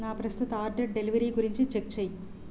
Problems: constant background noise